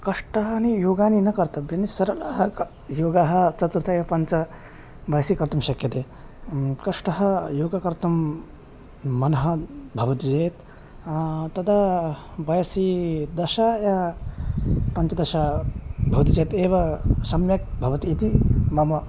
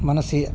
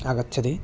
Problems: constant background noise